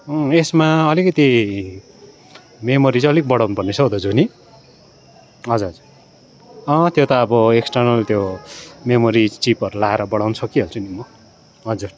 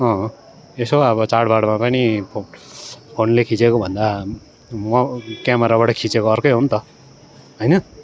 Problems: constant background noise